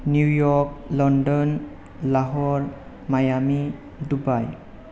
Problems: background sounds at intervals